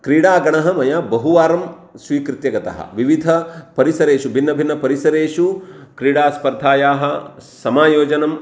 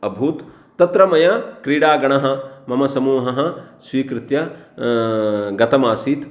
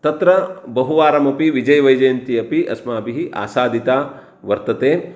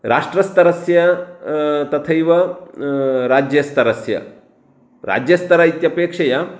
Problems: none marked